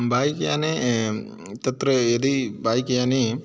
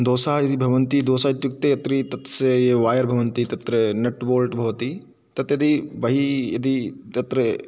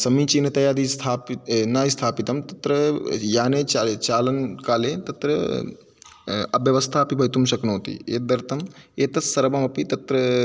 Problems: none marked